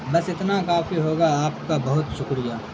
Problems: constant background noise